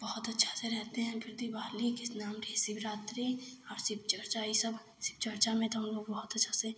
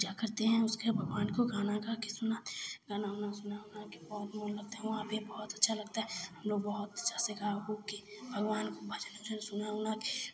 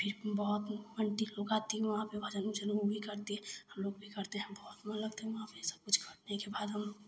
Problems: constant background noise